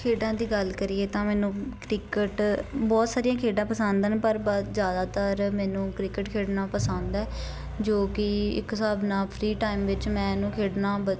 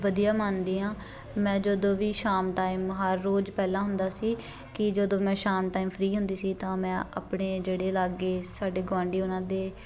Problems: constant background noise, continuous background conversations